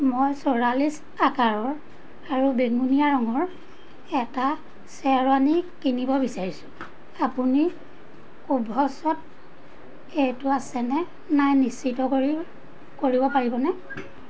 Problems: constant background noise